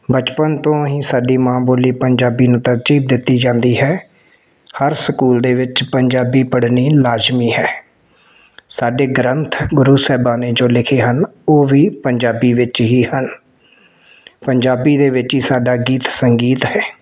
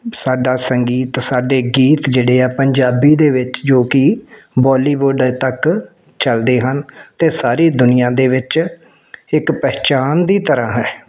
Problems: background sounds at intervals